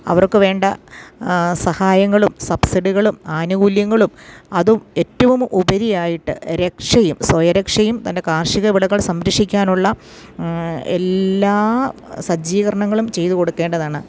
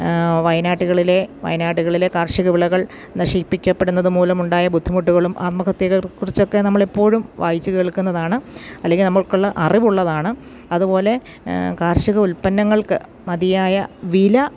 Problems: none marked